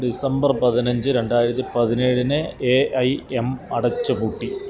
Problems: continuous background conversations